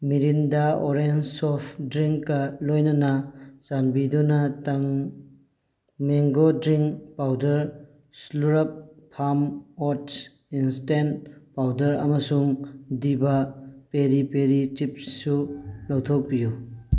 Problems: background sounds at intervals